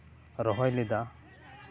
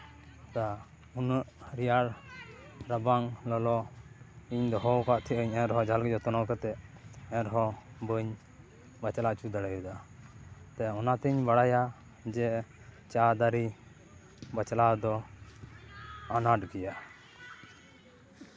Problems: continuous background conversations